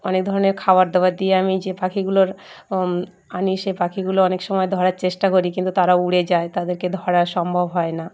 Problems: none marked